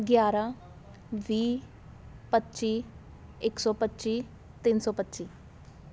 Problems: constant background noise, background conversations at intervals